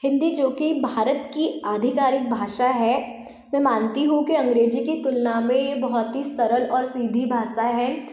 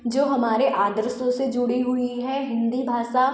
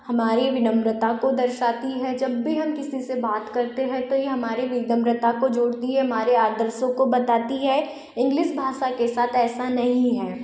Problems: constant background noise